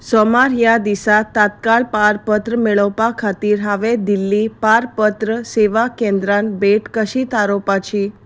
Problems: none marked